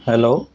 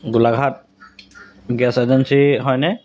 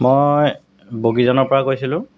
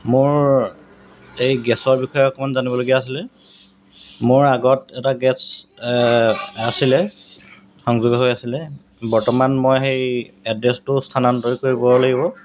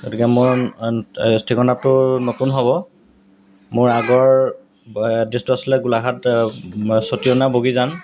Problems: background sounds at intervals